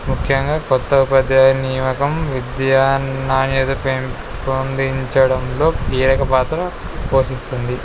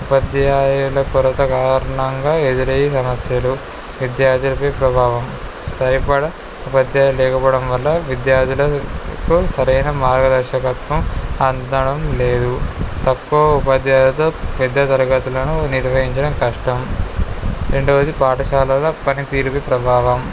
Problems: none marked